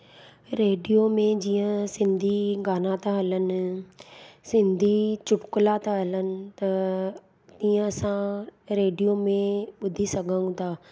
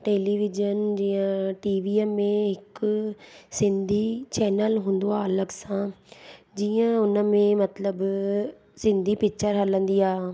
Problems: none marked